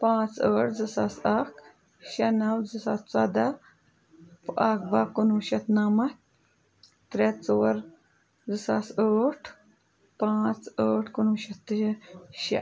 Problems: none marked